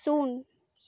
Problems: none marked